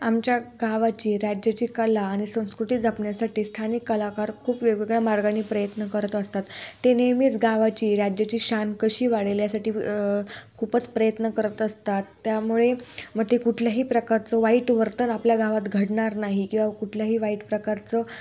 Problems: none marked